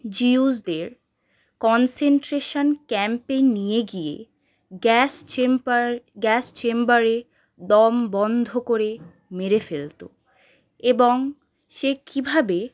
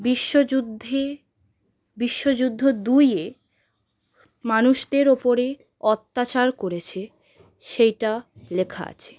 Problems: background sounds at intervals